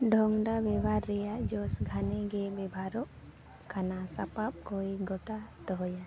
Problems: constant background noise